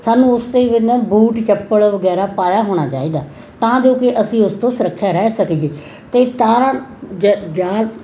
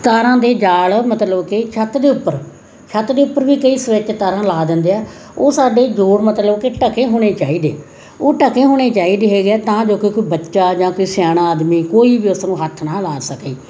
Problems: constant background noise